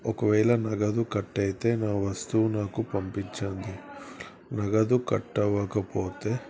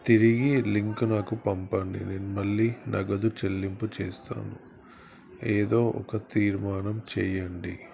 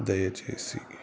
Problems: constant background noise